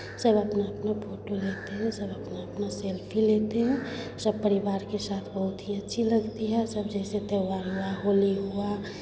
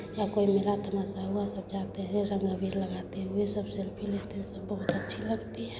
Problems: none marked